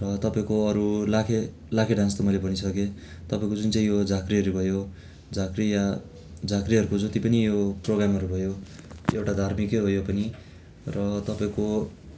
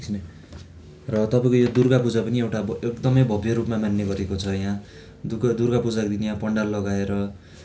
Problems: constant background noise